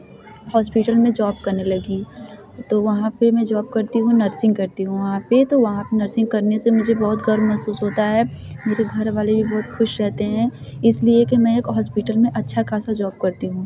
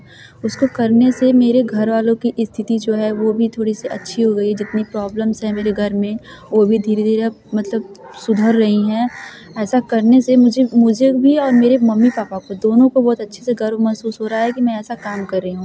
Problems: constant background noise